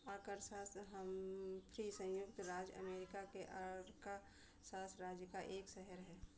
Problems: constant background noise